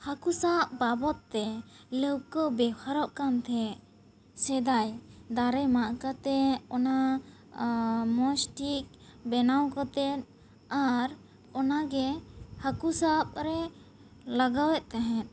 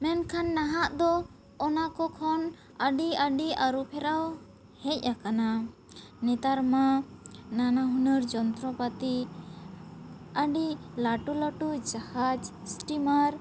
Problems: none marked